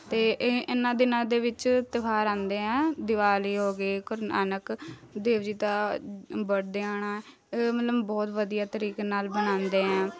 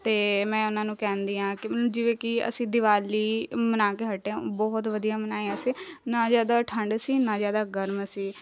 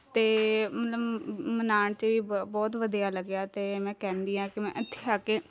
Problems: none marked